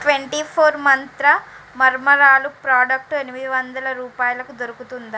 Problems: constant background noise